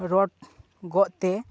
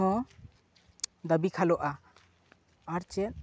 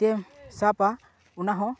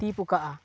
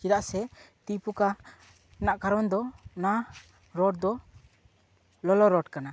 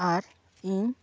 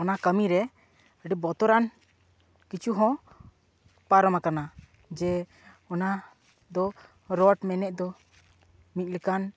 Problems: background sounds at intervals